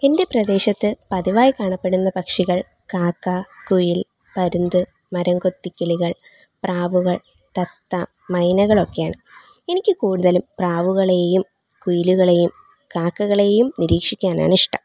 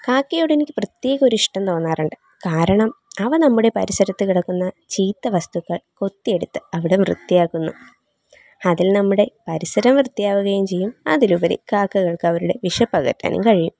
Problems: background sounds at intervals